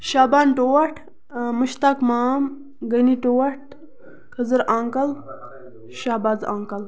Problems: background sounds at intervals, background conversations at intervals